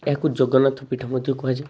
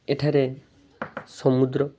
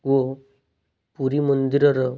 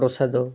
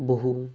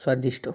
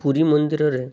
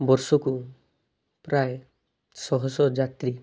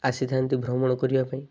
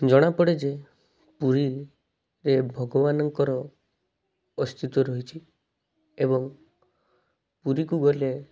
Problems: none marked